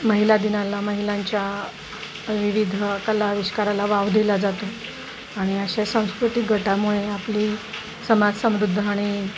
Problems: constant background noise